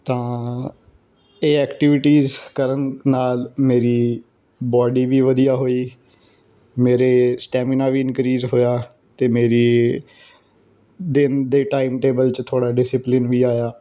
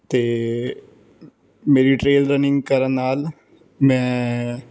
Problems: background sounds at intervals